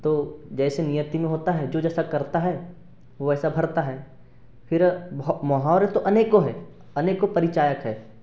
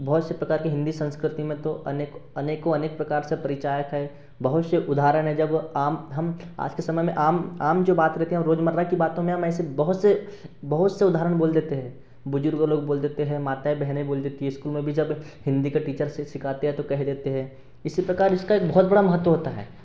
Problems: none marked